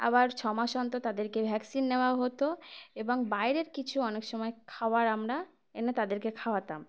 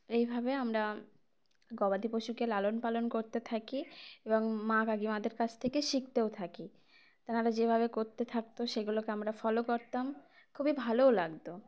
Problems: background sounds at intervals